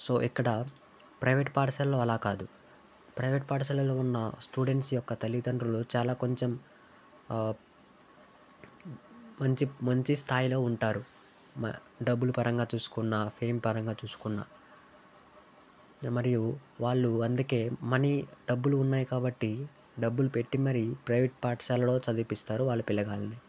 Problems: background sounds at intervals